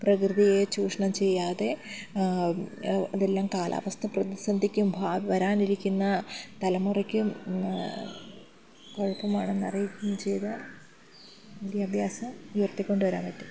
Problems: background sounds at intervals, low volume